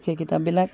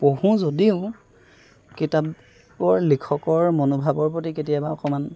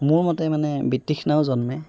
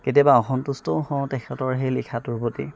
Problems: background sounds at intervals